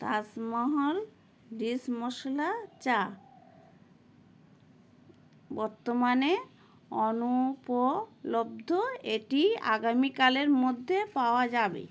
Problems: none marked